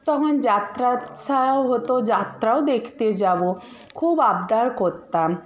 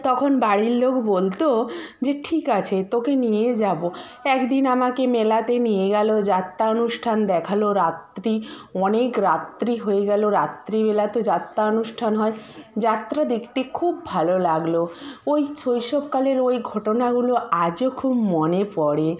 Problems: constant background noise, background conversations at intervals